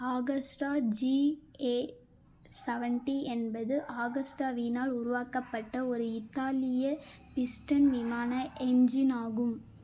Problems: none marked